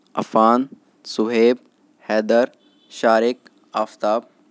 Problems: none marked